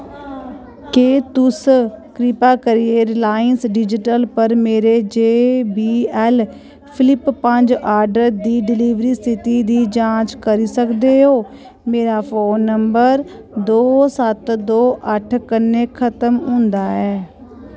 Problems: none marked